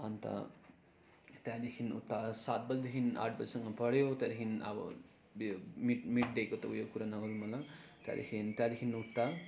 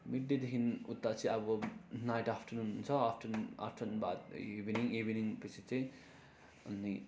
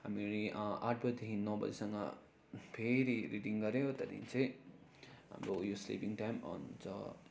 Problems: none marked